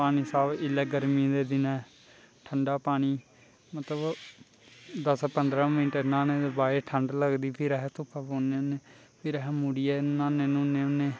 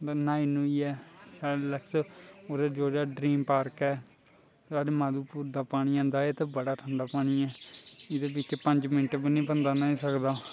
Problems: constant background noise, low volume